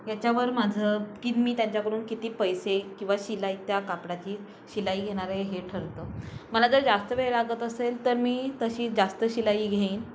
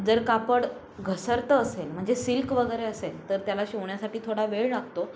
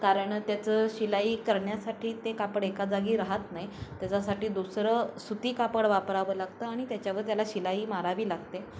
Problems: constant background noise